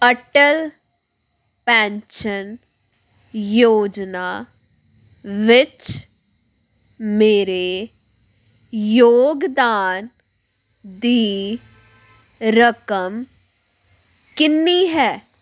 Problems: background sounds at intervals